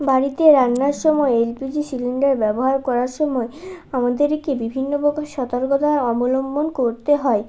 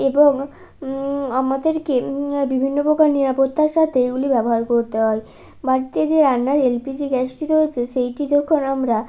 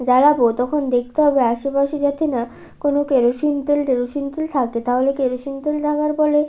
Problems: constant background noise